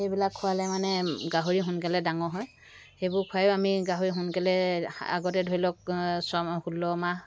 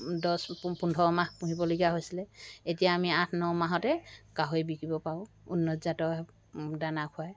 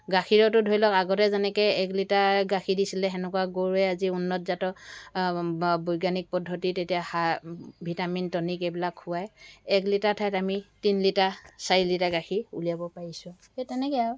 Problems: background sounds at intervals